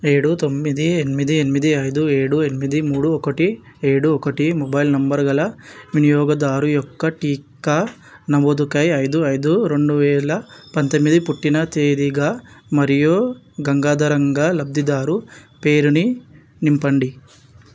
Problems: background sounds at intervals